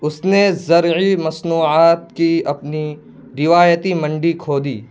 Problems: constant background noise